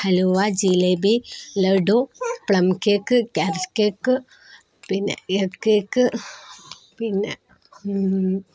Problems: background sounds at intervals